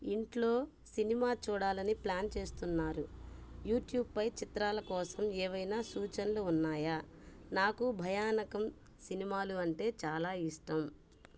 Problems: none marked